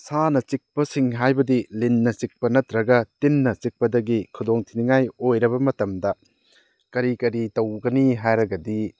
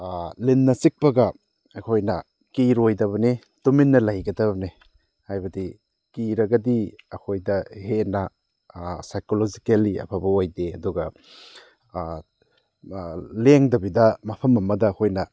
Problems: none marked